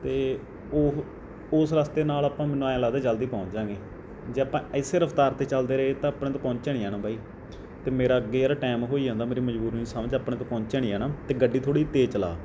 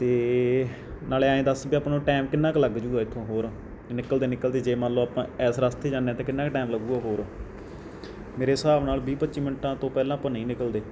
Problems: background conversations at intervals